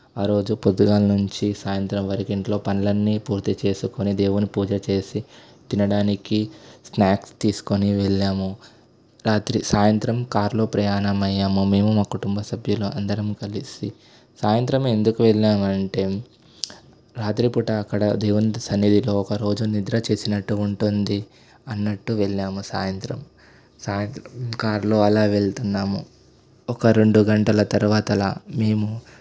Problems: constant background noise